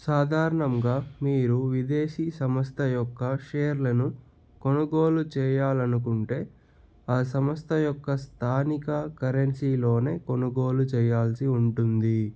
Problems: none marked